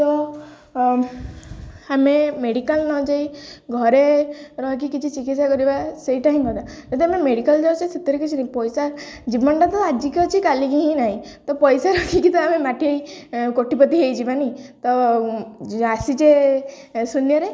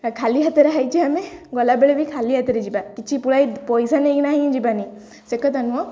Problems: none marked